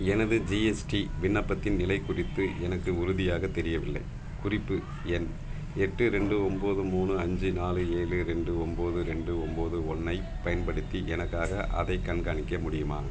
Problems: background sounds at intervals